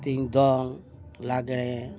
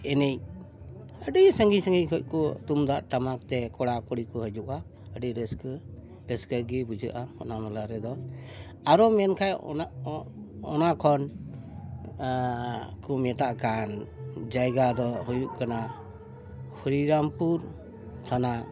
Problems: constant background noise, continuous background conversations